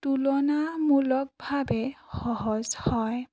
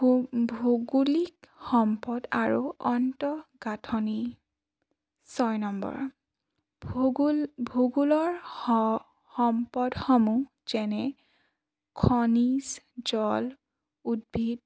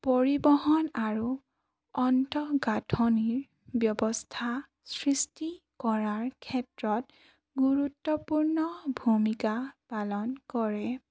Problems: none marked